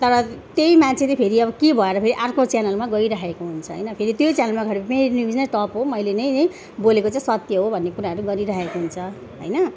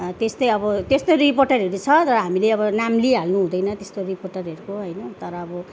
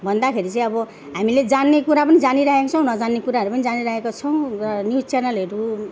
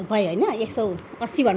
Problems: background conversations at intervals